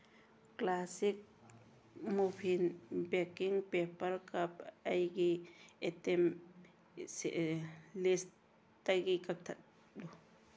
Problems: background sounds at intervals